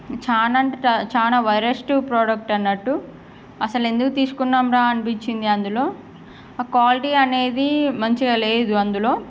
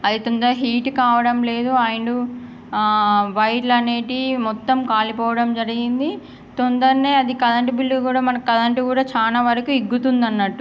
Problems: none marked